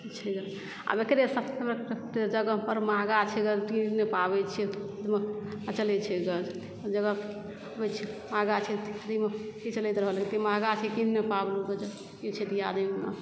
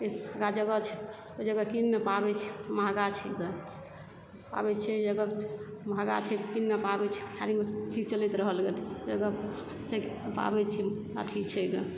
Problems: background sounds at intervals, low volume